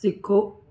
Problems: constant background noise